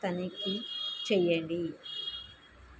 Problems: constant background noise, low volume